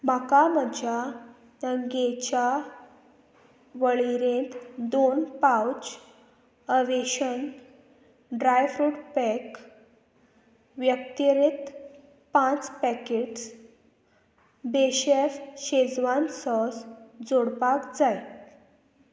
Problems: constant background noise